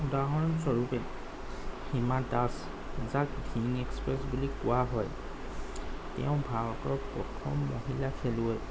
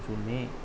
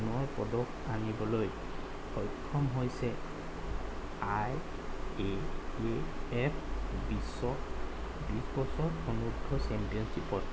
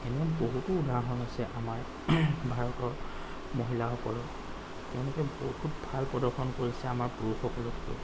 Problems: constant background noise